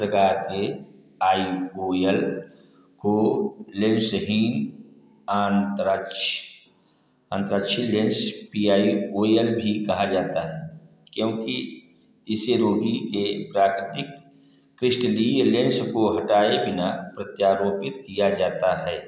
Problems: none marked